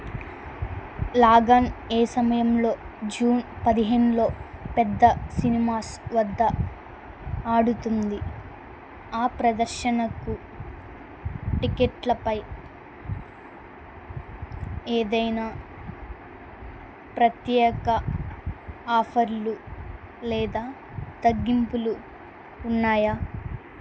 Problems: none marked